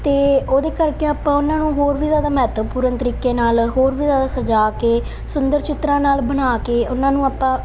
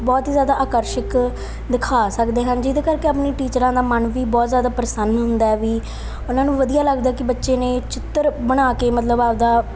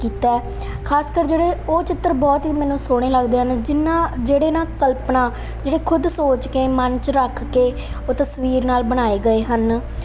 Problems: none marked